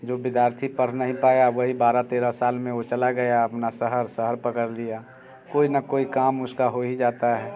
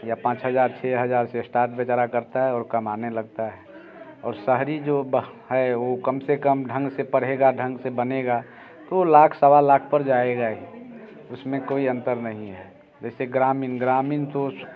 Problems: constant background noise, background conversations at intervals